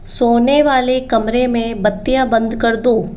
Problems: none marked